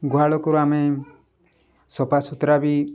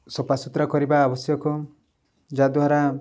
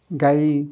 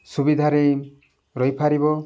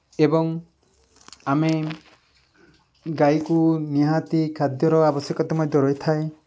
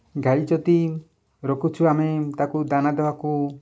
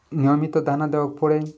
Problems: background sounds at intervals